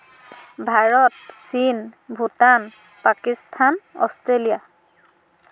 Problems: background sounds at intervals